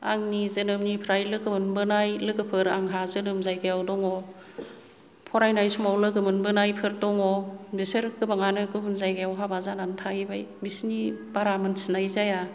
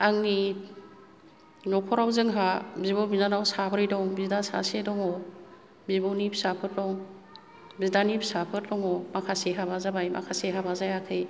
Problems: low volume